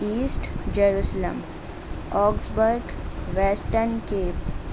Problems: constant background noise